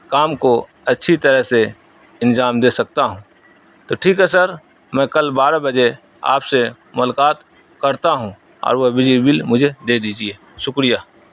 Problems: constant background noise